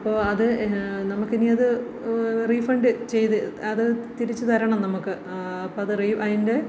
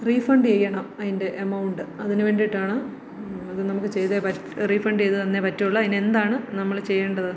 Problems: low volume